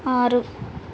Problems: constant background noise